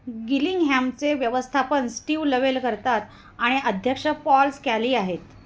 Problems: none marked